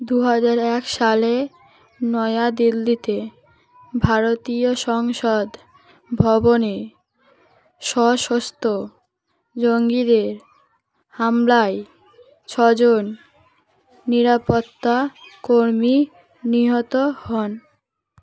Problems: constant background noise, background conversations at intervals